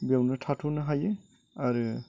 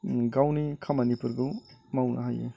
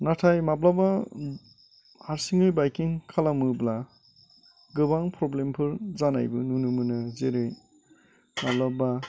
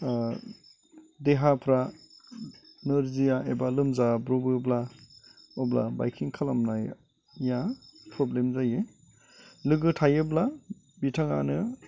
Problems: none marked